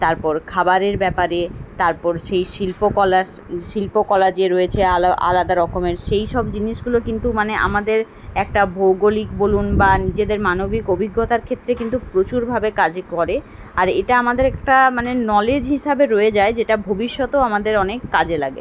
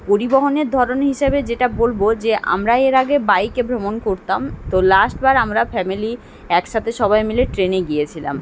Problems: constant background noise